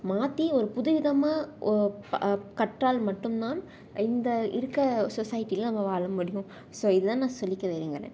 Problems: none marked